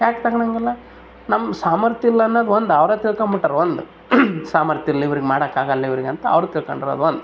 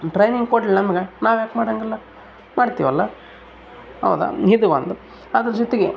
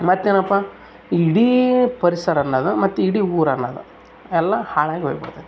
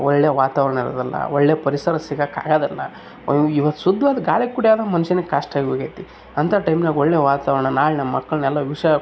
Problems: none marked